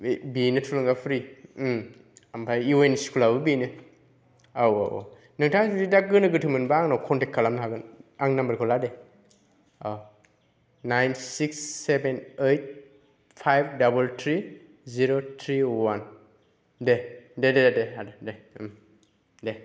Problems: none marked